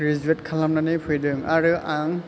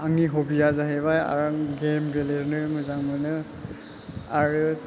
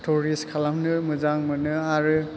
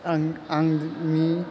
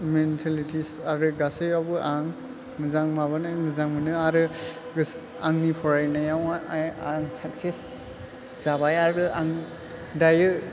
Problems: low volume